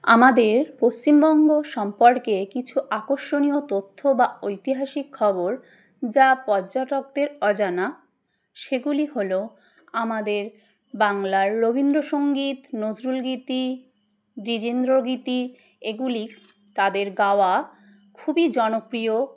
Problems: none marked